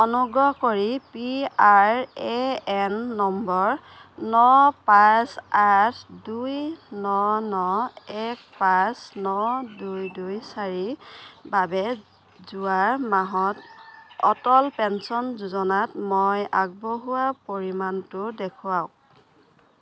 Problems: background sounds at intervals